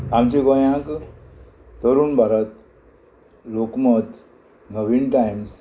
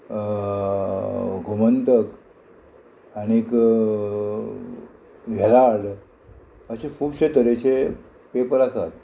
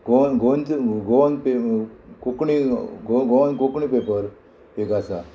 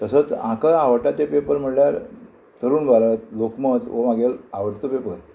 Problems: constant background noise